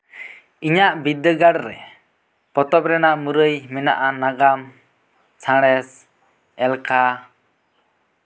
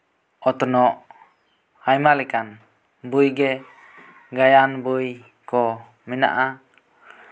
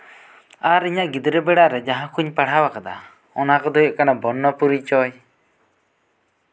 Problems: background sounds at intervals